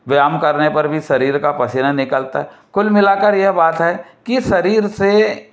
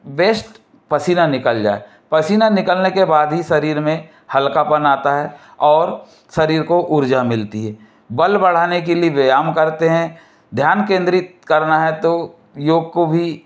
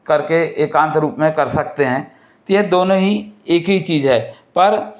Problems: none marked